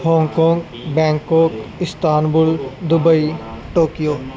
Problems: background sounds at intervals